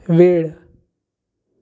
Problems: constant background noise